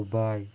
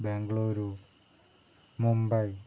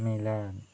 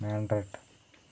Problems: low volume